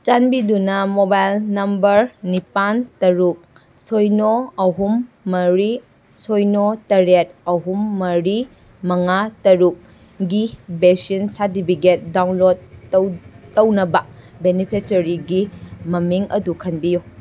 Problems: none marked